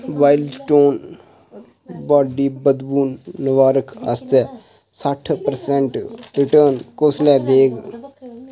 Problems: constant background noise